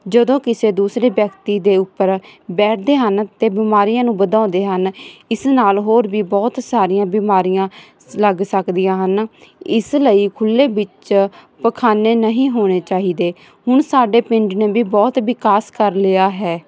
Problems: background sounds at intervals